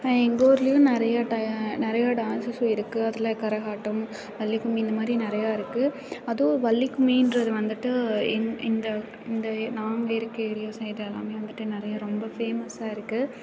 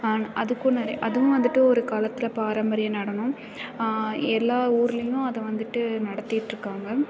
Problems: constant background noise